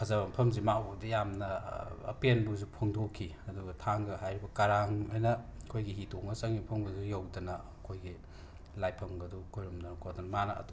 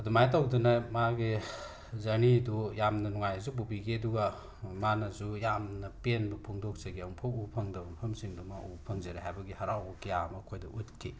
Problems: constant background noise